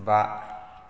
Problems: none marked